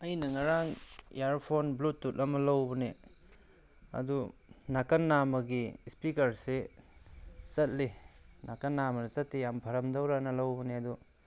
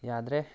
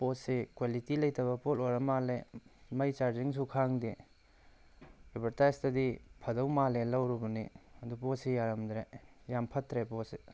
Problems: background sounds at intervals